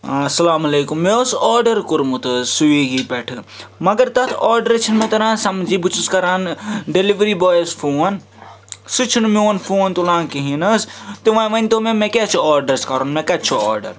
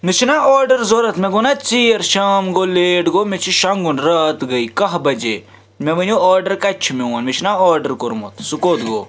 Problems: constant background noise, background conversations at intervals